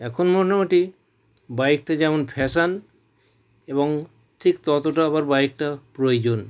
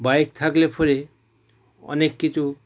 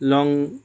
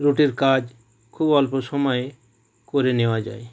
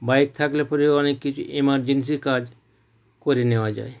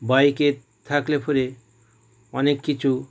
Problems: background sounds at intervals